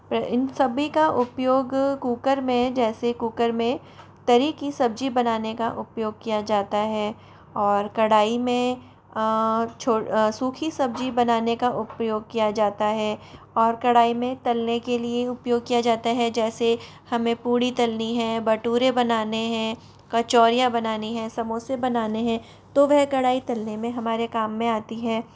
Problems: background sounds at intervals